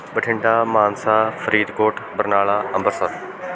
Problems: constant background noise